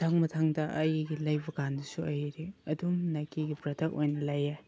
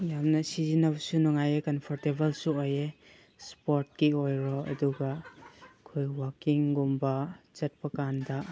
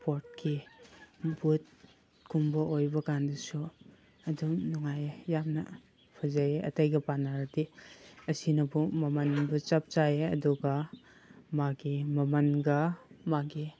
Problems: background sounds at intervals